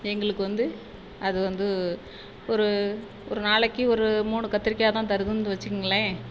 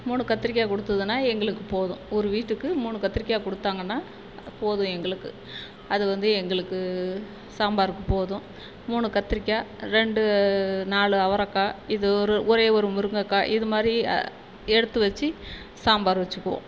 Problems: constant background noise